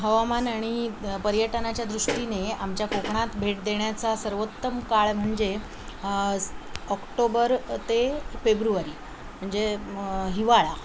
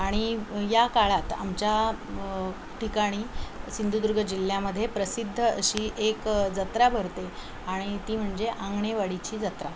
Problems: constant background noise, background conversations at intervals